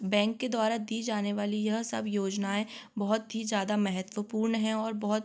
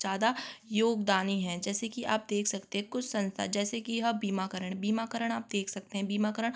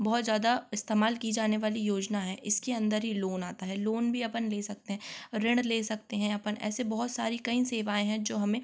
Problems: constant background noise